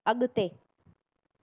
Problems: none marked